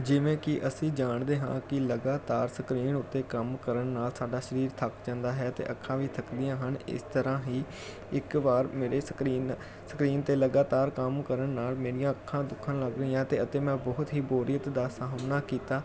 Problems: none marked